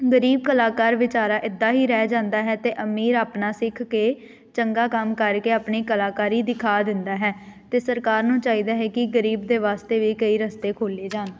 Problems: background sounds at intervals